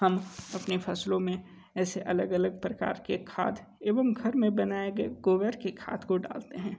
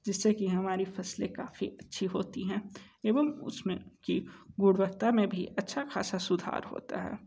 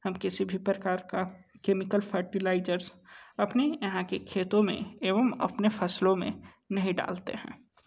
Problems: background sounds at intervals